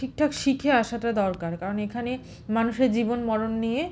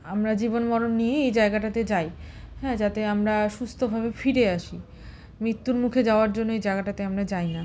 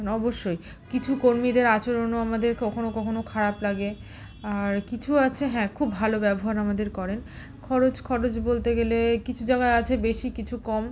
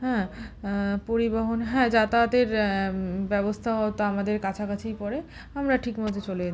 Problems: none marked